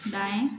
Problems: constant background noise